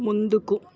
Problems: background conversations at intervals